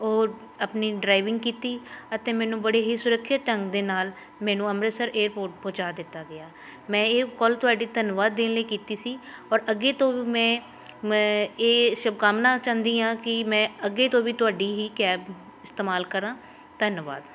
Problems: none marked